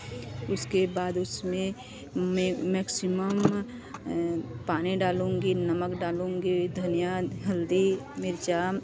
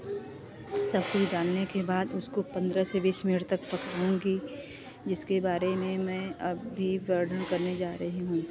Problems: continuous background conversations